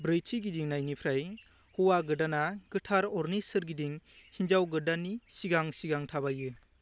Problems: low volume